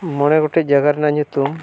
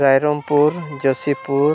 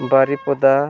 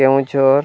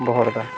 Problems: constant background noise